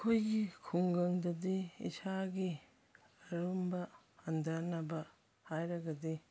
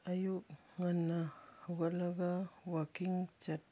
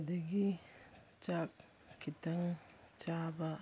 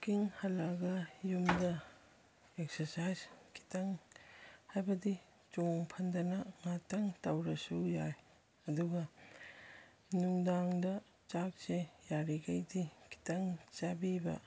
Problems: none marked